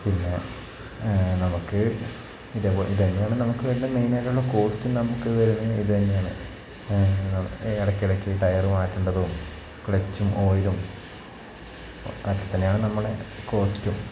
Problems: background sounds at intervals, low volume